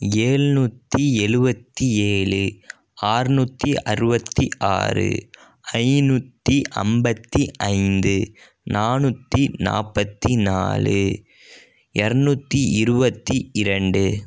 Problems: none marked